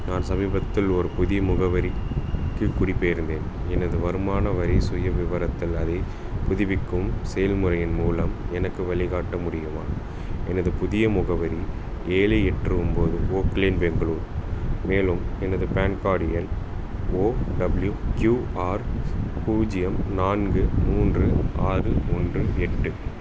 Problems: constant background noise